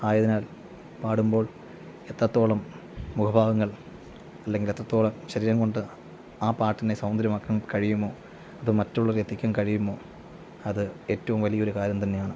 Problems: none marked